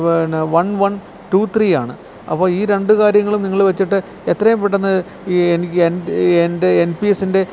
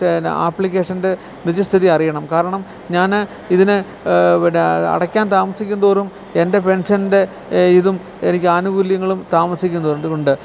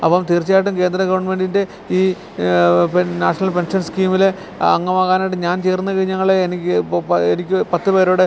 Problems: constant background noise